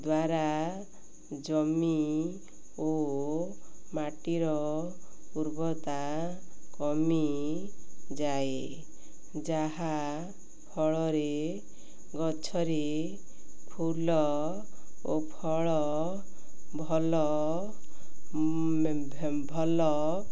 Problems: none marked